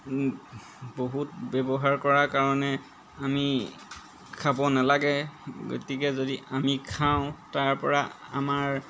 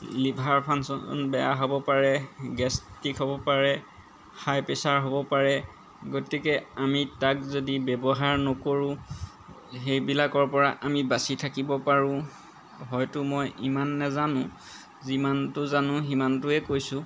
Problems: background sounds at intervals